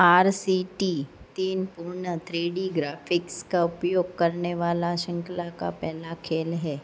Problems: none marked